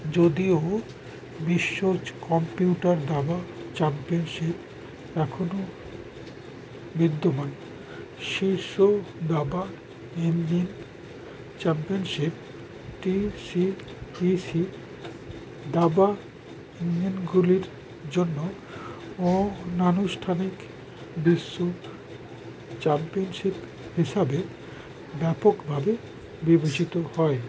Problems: constant background noise